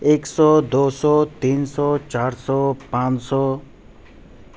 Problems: background sounds at intervals